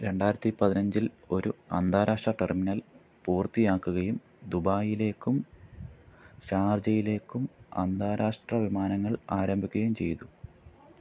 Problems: none marked